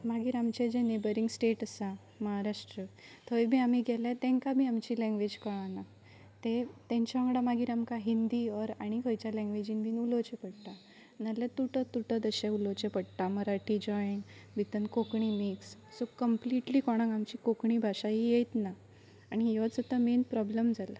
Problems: none marked